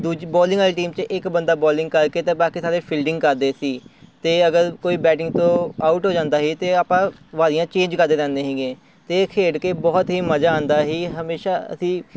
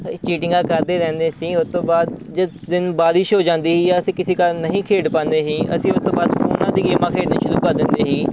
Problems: constant background noise